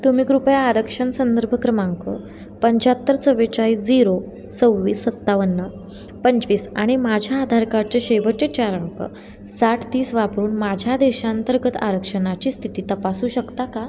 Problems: none marked